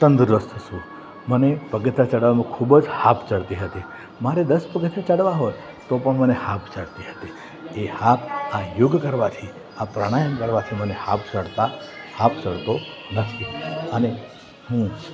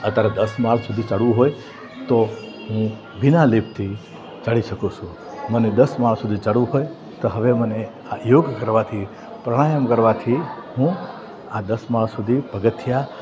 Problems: constant background noise